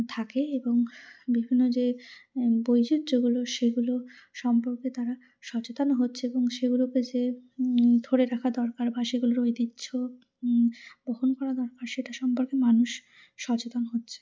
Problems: none marked